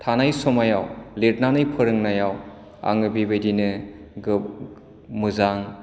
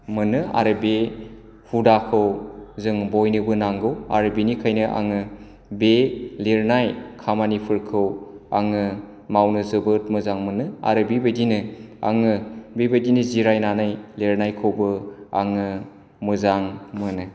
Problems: none marked